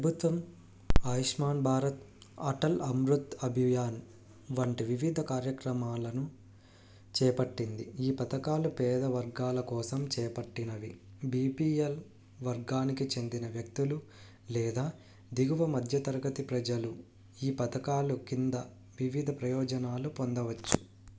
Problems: none marked